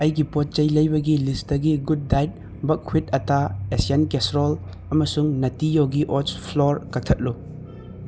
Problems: none marked